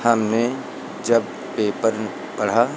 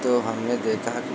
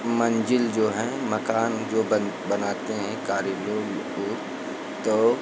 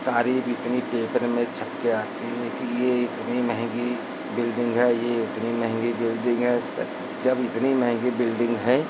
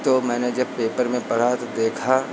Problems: constant background noise